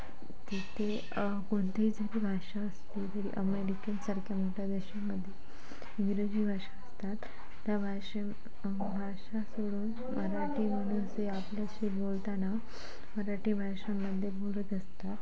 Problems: constant background noise, continuous background conversations